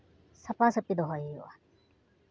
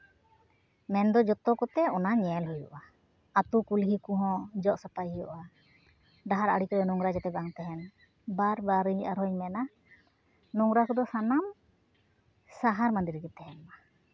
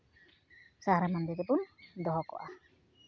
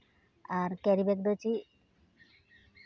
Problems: background sounds at intervals